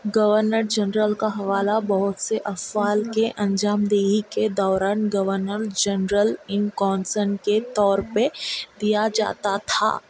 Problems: constant background noise